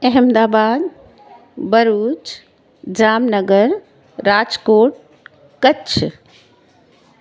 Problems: constant background noise